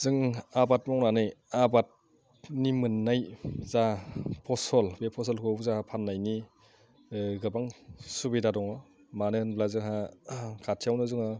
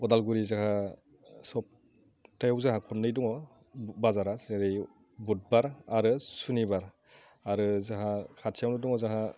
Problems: low volume